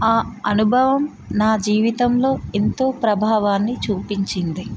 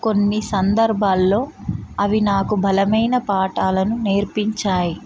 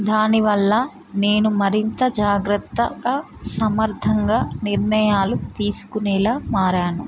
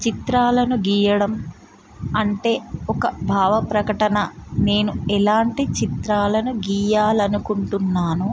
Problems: constant background noise